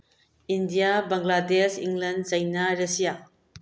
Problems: low volume